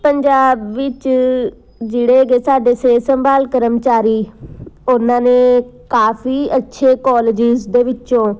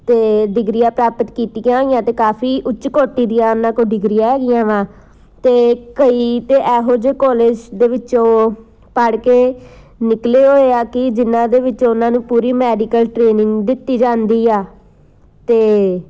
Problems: constant background noise